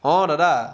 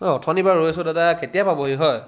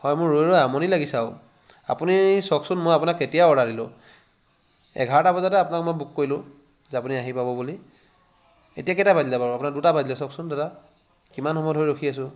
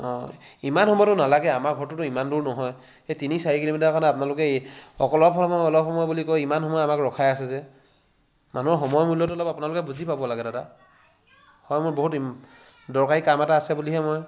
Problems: constant background noise